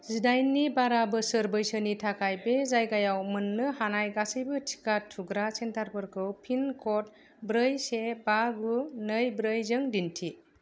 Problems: none marked